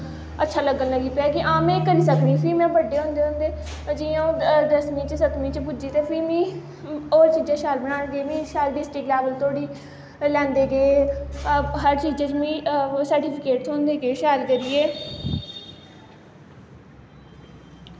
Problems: constant background noise